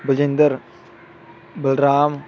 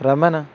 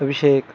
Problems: constant background noise